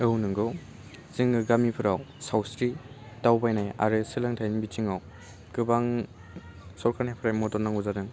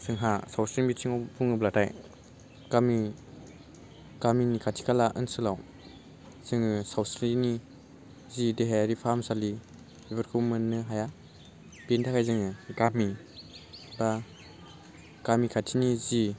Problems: low volume